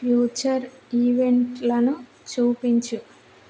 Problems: constant background noise